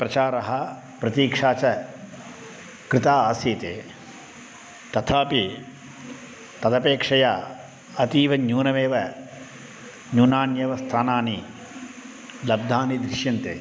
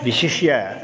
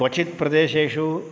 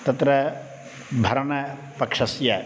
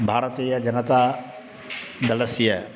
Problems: constant background noise